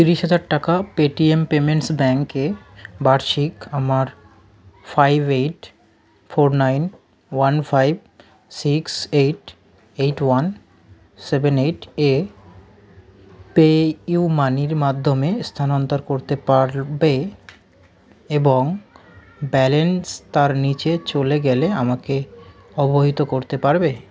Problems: background conversations at intervals